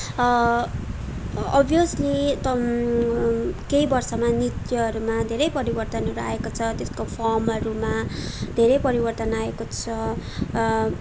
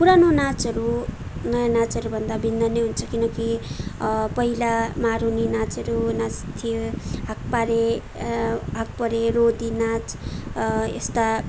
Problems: constant background noise